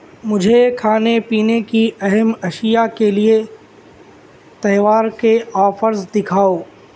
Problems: constant background noise